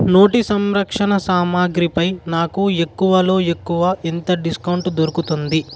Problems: constant background noise